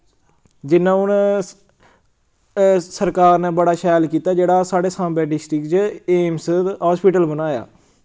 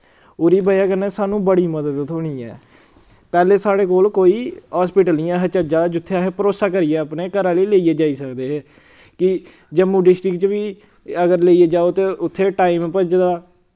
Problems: background sounds at intervals